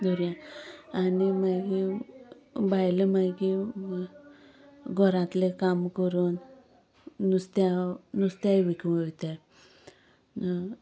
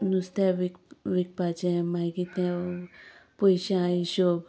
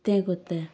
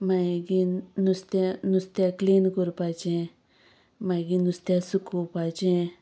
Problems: background sounds at intervals